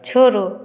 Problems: none marked